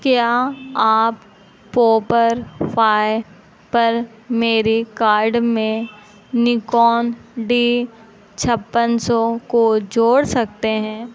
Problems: constant background noise